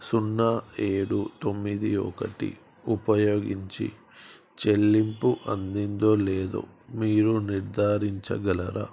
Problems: constant background noise